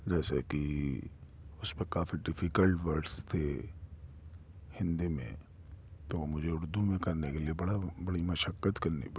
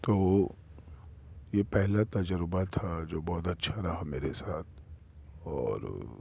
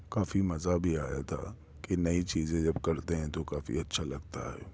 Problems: constant background noise